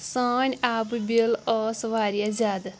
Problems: none marked